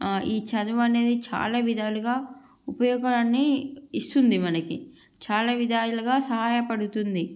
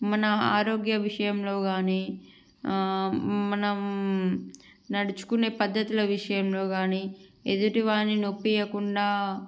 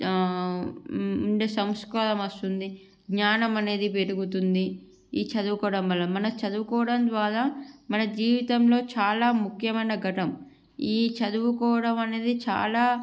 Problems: background sounds at intervals